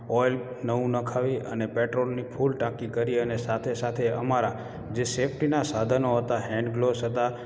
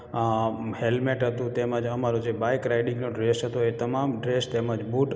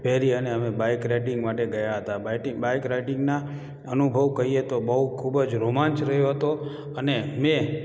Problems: echo